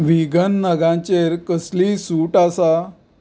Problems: background sounds at intervals